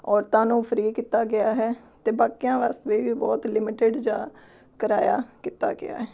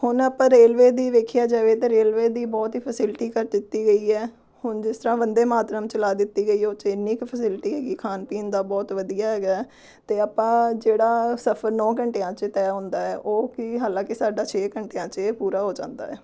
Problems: none marked